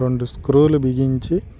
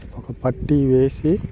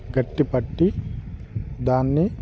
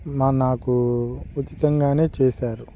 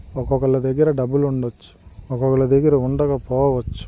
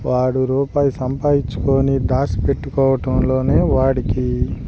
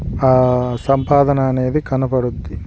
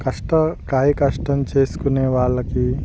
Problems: none marked